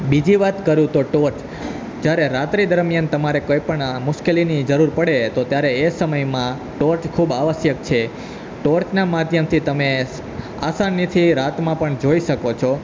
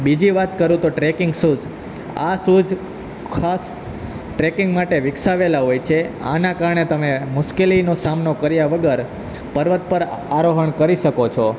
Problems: none marked